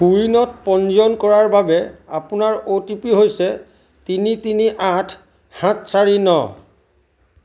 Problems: none marked